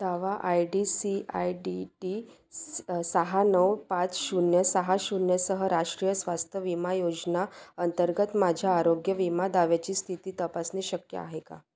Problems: constant background noise